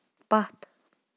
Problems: background sounds at intervals